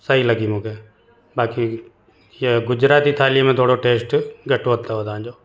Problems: constant background noise, echo